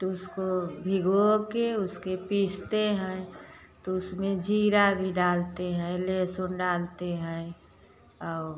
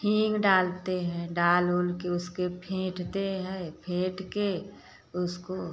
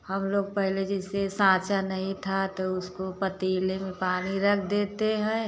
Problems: none marked